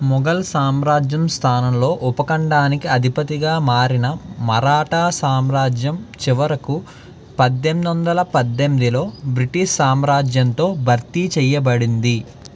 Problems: none marked